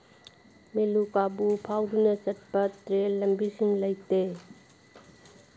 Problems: background sounds at intervals